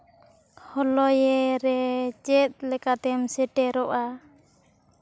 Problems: background sounds at intervals